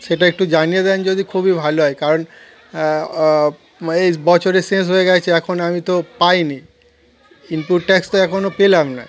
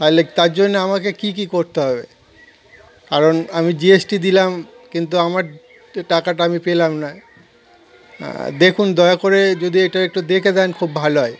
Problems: constant background noise, continuous background conversations